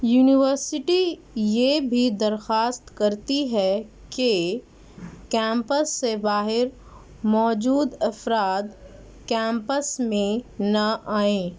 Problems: none marked